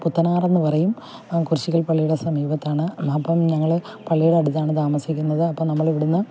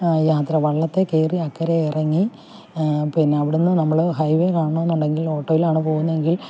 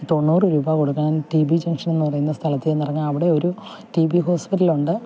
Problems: background sounds at intervals, low volume